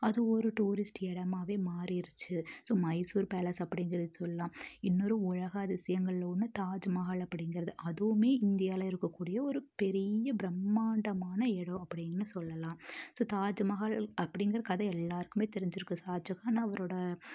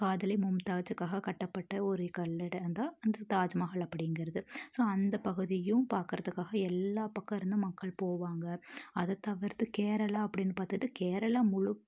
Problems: low volume